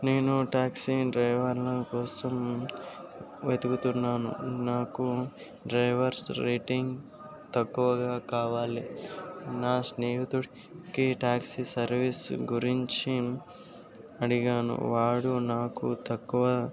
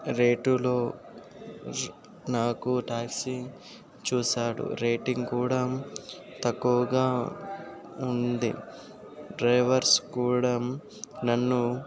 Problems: constant background noise